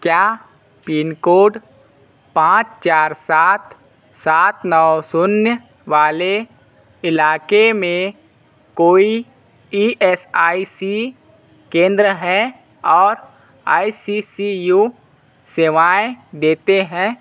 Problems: constant background noise